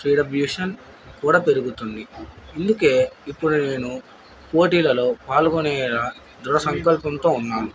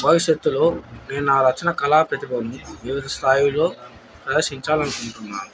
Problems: background sounds at intervals